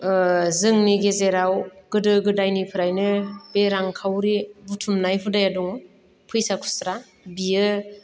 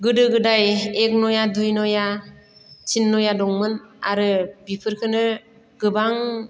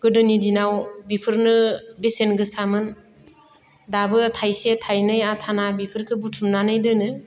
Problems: none marked